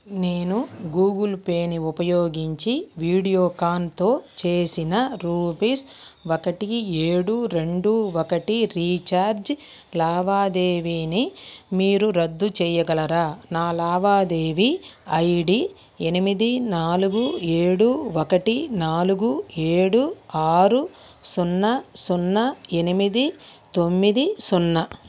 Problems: none marked